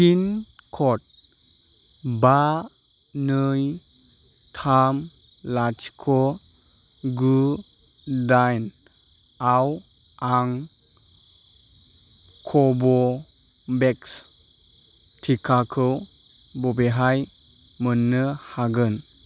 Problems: constant background noise